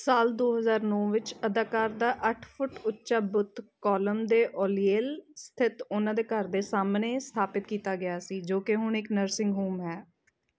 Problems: none marked